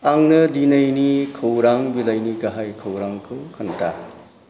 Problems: low volume